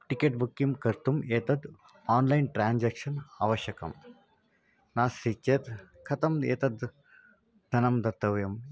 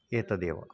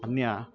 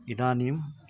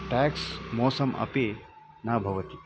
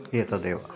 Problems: background conversations at intervals